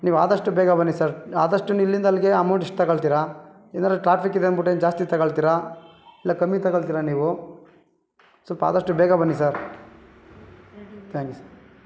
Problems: none marked